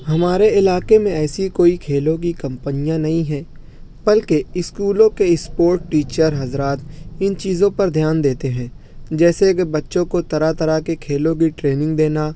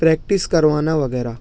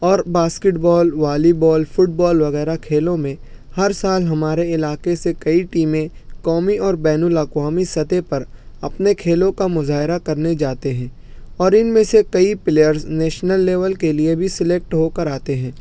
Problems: background sounds at intervals